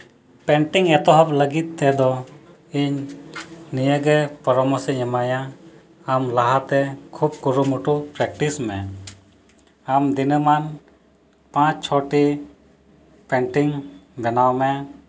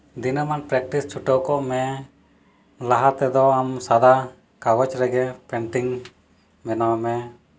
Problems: none marked